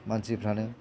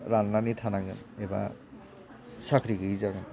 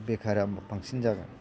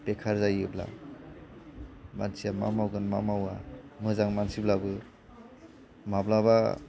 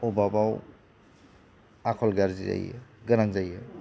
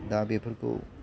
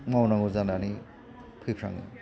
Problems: constant background noise